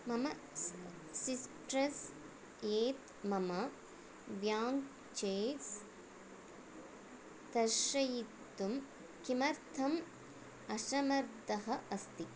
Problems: constant background noise